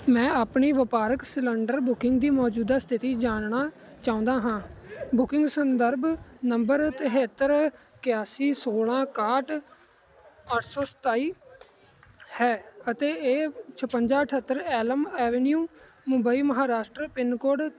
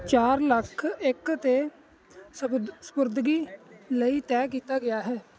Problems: none marked